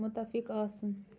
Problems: background sounds at intervals